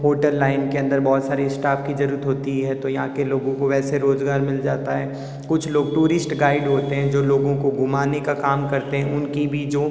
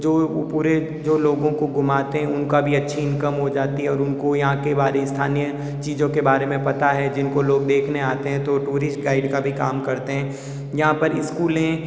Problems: echo